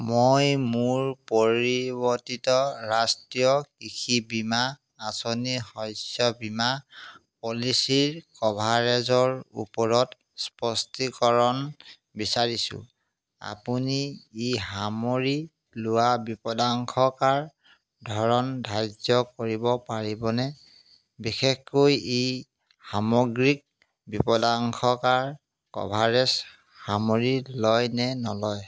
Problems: constant background noise